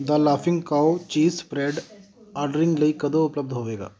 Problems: background conversations at intervals